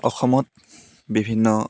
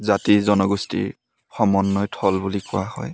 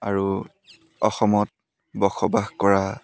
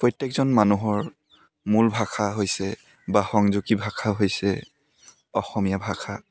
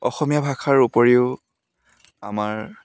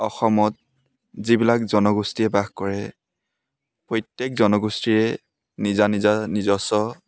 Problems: background sounds at intervals